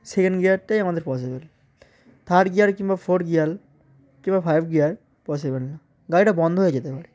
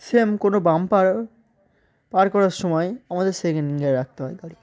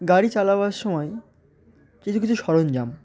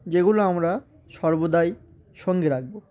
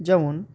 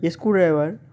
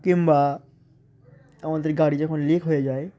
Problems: constant background noise, continuous background conversations